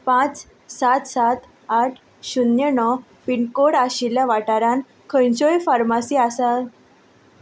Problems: none marked